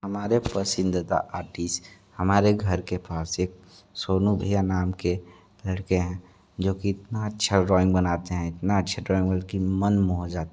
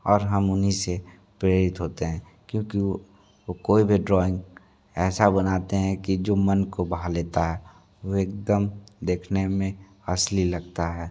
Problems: background sounds at intervals